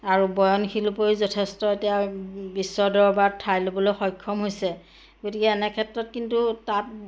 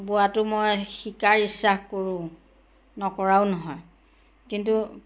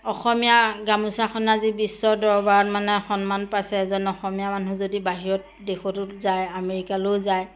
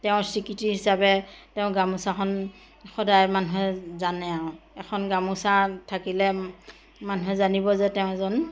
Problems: none marked